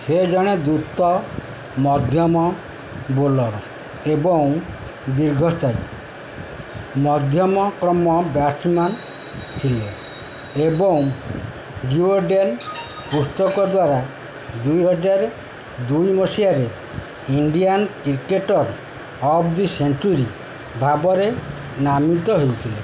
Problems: constant background noise